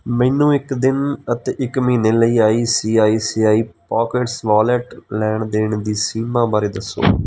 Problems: background sounds at intervals